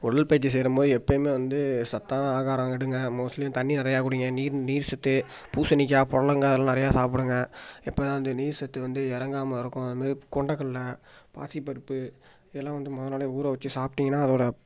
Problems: background sounds at intervals